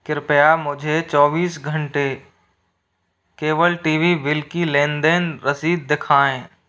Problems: none marked